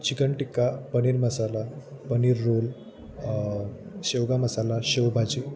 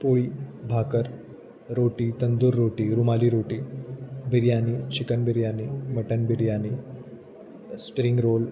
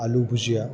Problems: constant background noise, continuous background conversations